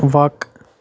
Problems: none marked